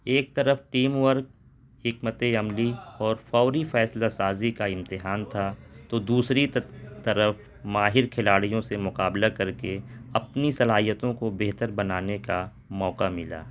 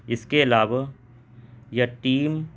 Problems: constant background noise